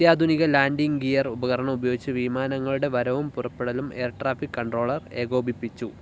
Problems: low volume